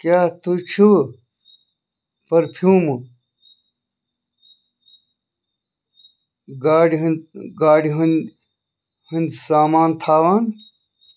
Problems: none marked